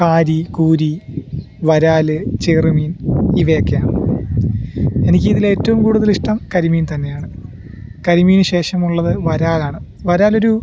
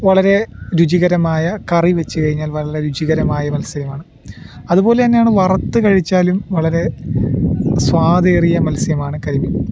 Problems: background sounds at intervals